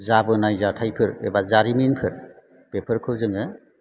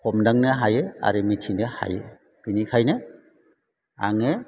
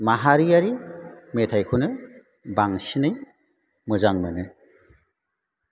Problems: background sounds at intervals